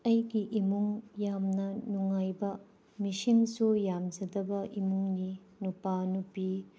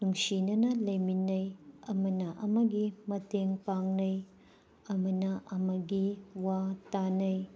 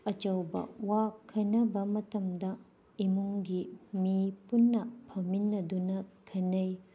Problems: background sounds at intervals